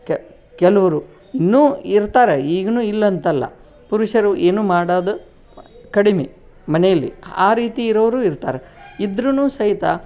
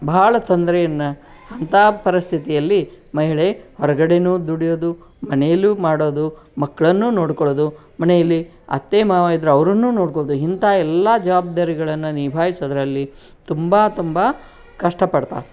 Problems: none marked